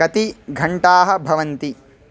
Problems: none marked